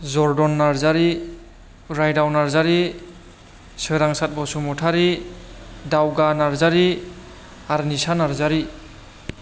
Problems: none marked